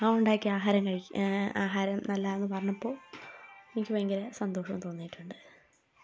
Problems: background sounds at intervals, low volume